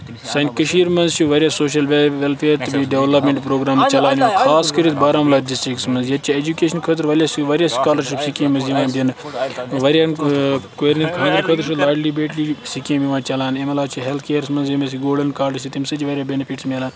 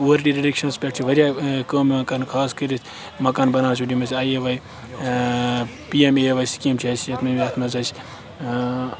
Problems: constant background noise, continuous background conversations